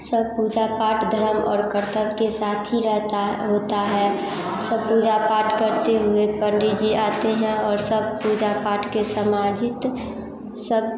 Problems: constant background noise